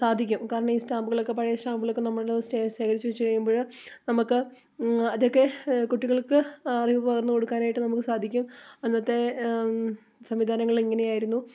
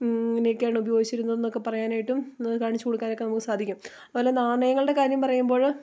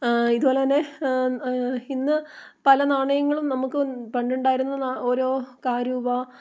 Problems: background sounds at intervals